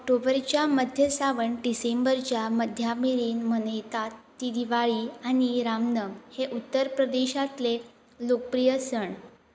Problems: none marked